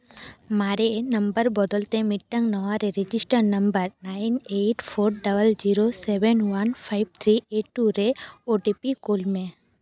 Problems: none marked